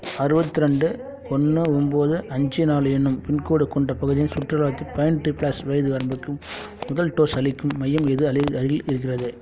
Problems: background sounds at intervals